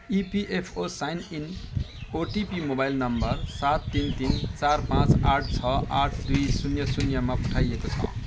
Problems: background sounds at intervals